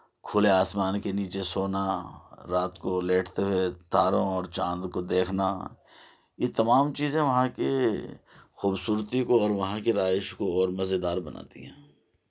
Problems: none marked